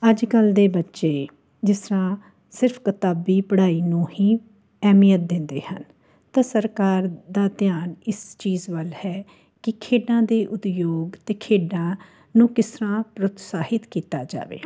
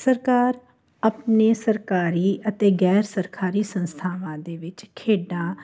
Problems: constant background noise